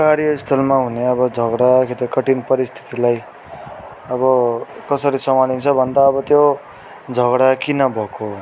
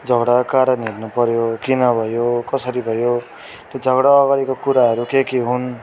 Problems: continuous background conversations